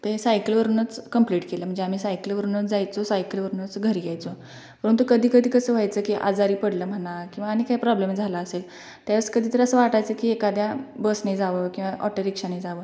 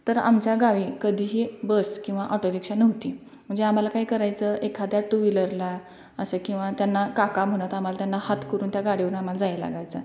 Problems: constant background noise, background conversations at intervals, echo